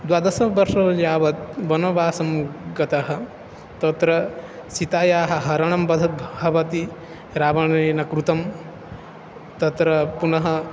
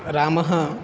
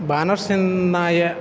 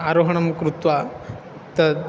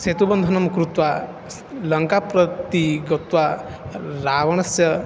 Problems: constant background noise